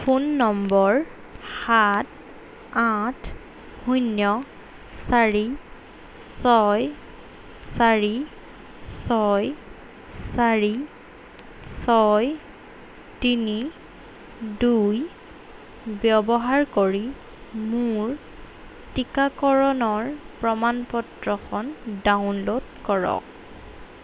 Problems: none marked